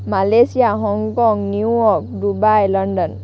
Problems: constant background noise